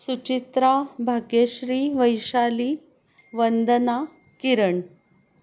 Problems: constant background noise